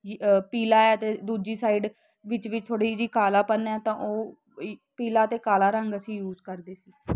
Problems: constant background noise